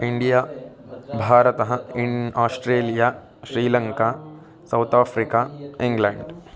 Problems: continuous background conversations